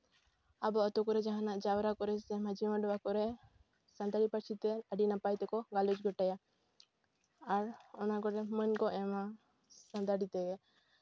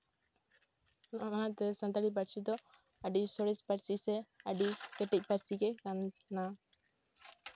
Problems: background sounds at intervals